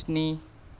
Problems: none marked